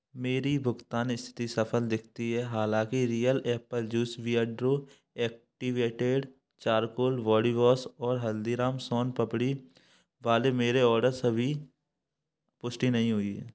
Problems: none marked